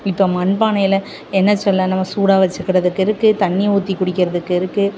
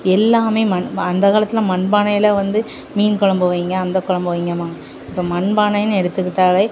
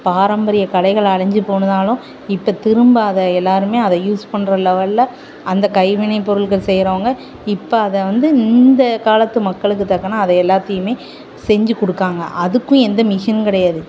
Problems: constant background noise